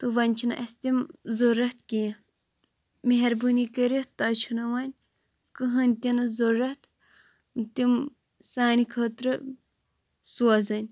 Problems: constant background noise